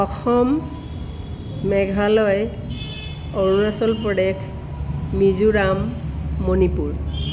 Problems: constant background noise